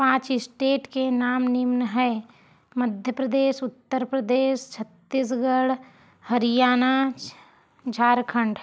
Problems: none marked